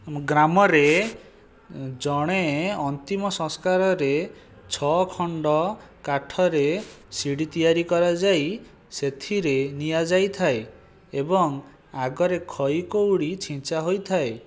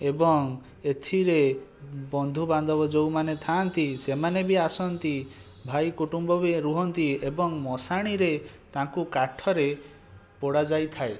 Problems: background sounds at intervals